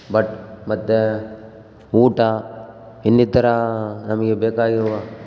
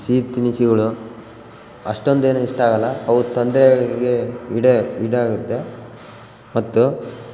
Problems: background sounds at intervals